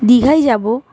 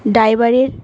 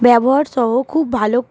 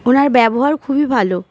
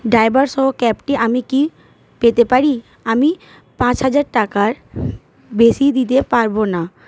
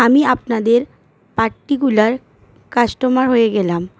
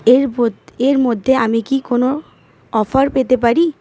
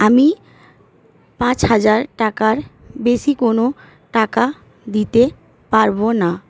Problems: none marked